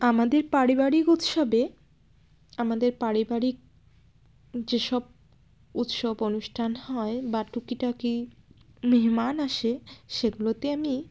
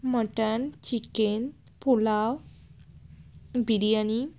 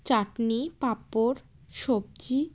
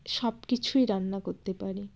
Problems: none marked